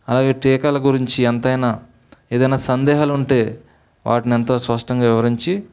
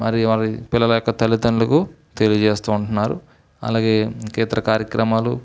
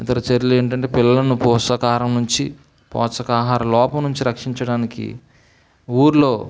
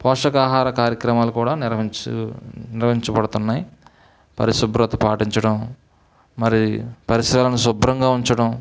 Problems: none marked